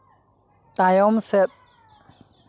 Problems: background sounds at intervals, background conversations at intervals